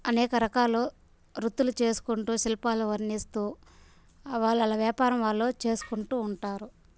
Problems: constant background noise